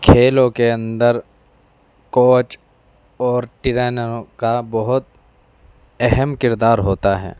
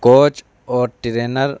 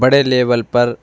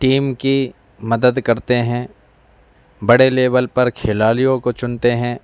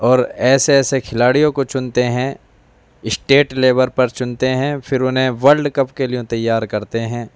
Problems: constant background noise